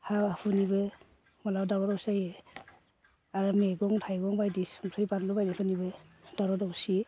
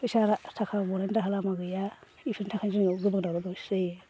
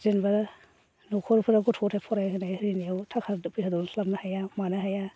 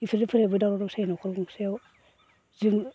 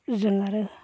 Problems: constant background noise